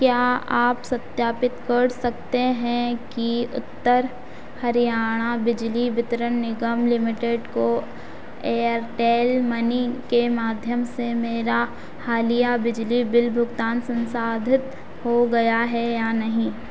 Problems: none marked